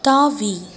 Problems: none marked